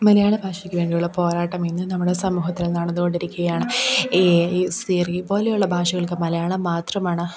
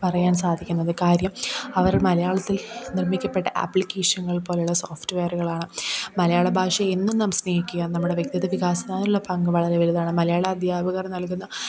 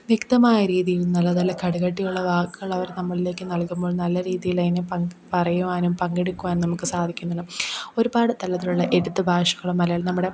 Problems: background conversations at intervals